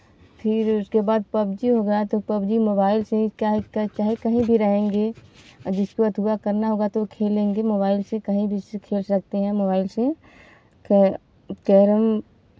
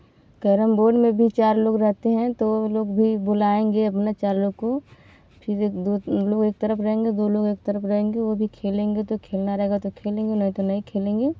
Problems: background sounds at intervals